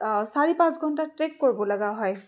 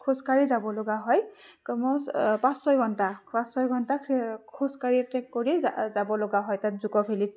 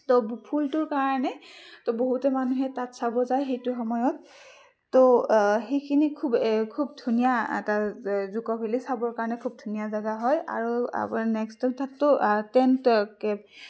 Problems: background sounds at intervals, background conversations at intervals